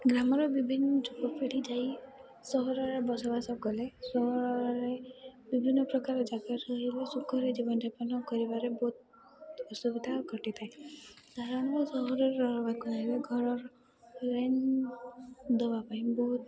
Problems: constant background noise